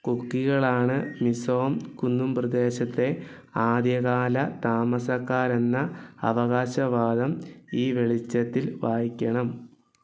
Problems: background sounds at intervals